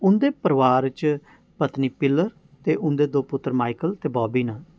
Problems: none marked